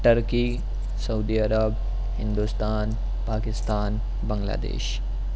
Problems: constant background noise